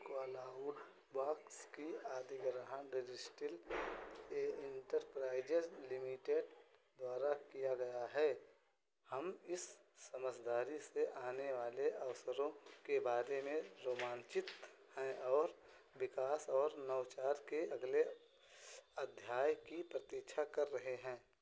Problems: constant background noise